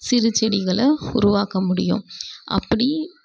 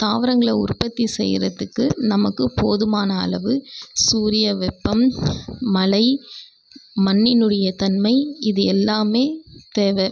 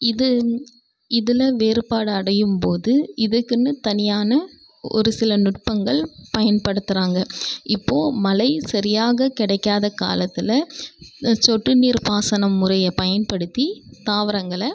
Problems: background sounds at intervals